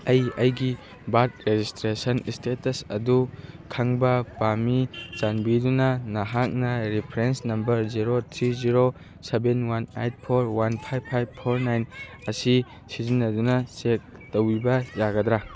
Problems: background sounds at intervals, background conversations at intervals